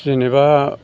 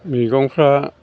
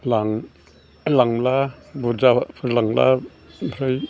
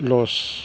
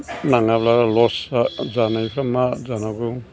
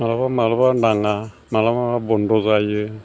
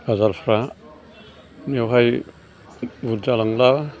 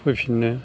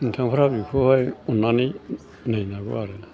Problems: constant background noise